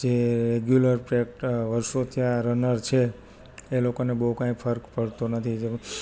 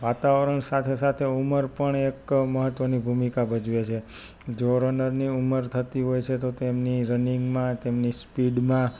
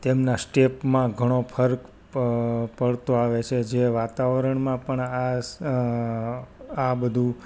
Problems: none marked